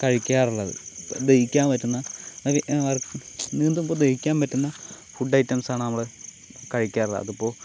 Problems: none marked